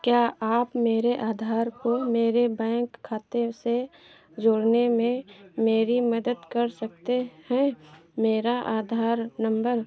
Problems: none marked